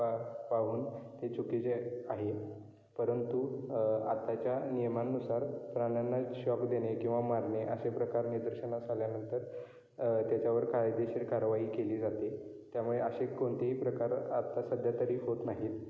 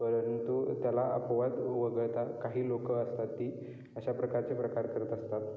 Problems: constant background noise, background conversations at intervals